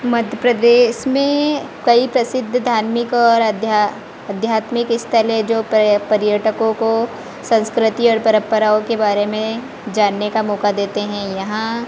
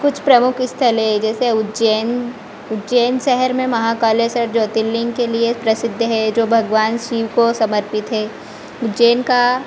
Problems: constant background noise